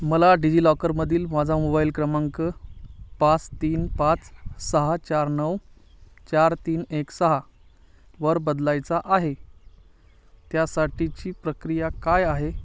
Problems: none marked